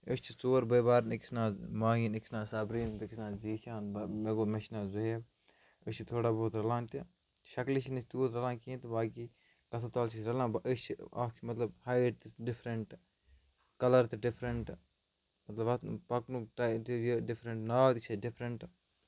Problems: background sounds at intervals, low volume